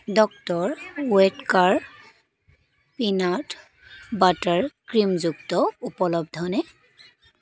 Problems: constant background noise